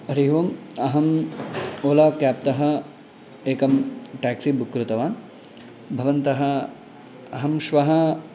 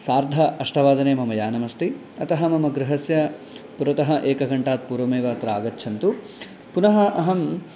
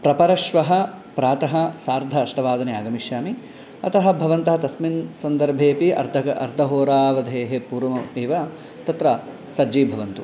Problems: constant background noise